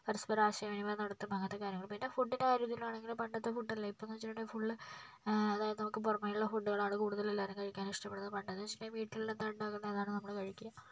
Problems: low volume